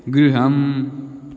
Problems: none marked